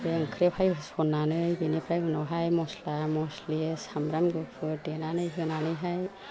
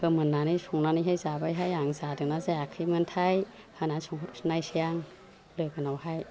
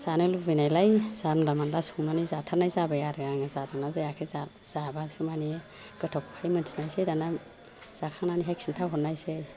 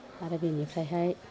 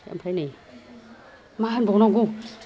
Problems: constant background noise